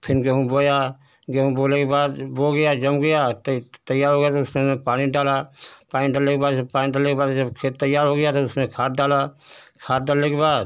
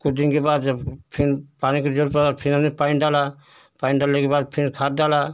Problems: none marked